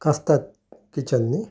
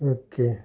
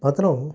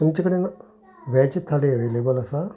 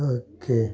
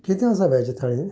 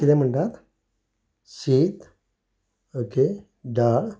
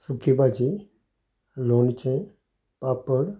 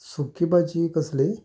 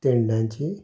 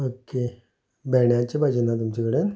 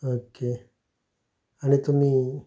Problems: background sounds at intervals, continuous background conversations